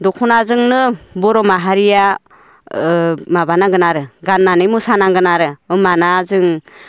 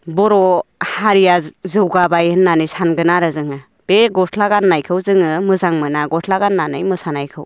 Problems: none marked